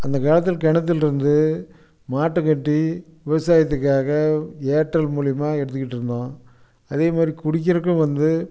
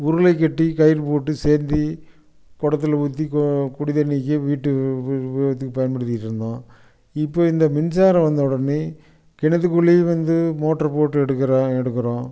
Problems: background sounds at intervals